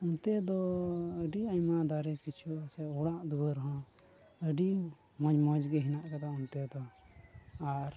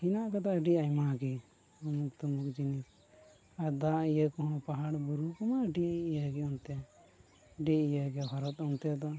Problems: constant background noise, low volume